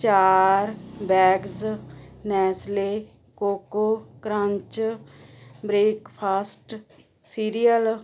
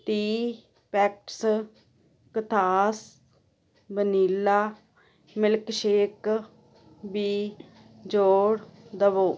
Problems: constant background noise